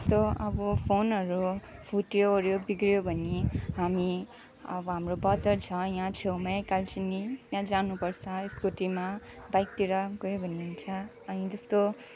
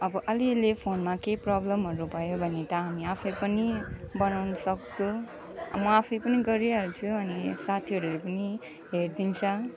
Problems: none marked